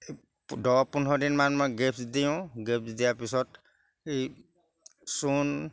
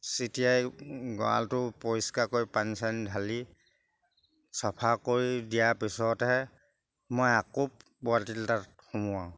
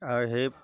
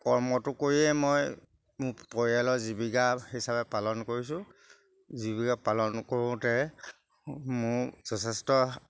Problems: background sounds at intervals